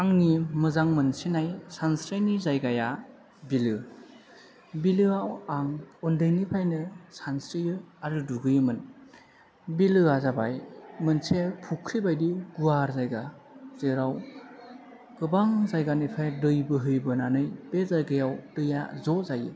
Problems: low volume